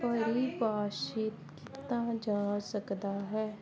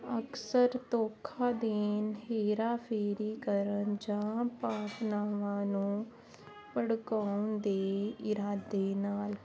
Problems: constant background noise